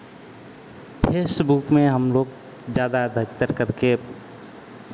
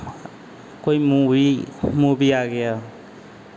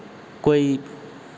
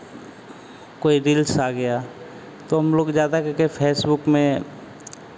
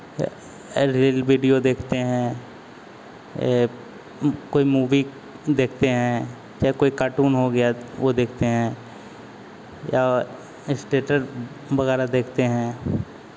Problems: none marked